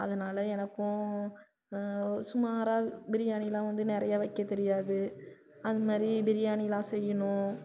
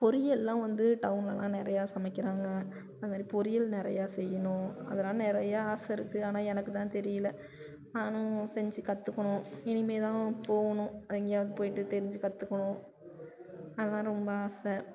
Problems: low volume